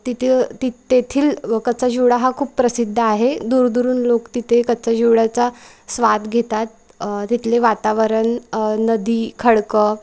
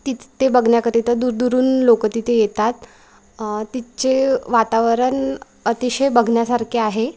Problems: none marked